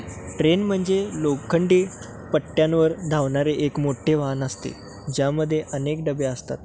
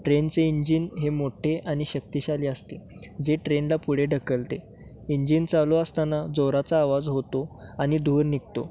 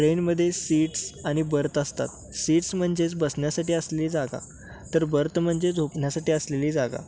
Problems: constant background noise, background conversations at intervals